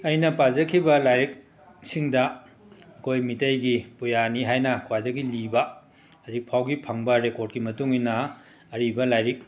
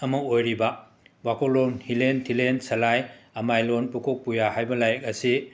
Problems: background sounds at intervals, continuous background conversations